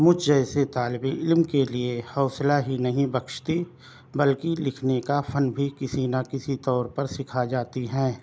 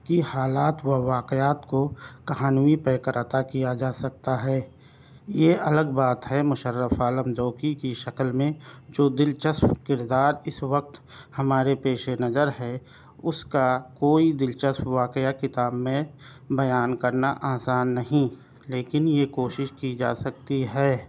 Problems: none marked